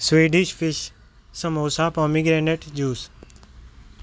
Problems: background sounds at intervals